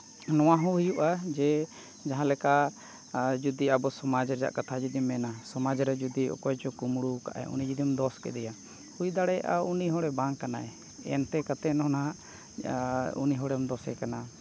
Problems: background sounds at intervals